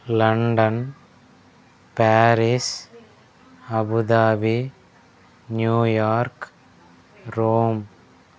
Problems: none marked